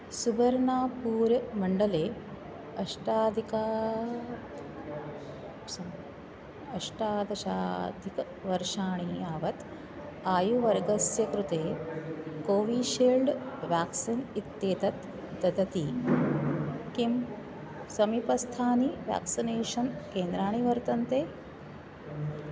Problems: constant background noise